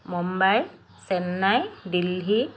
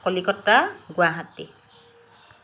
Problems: constant background noise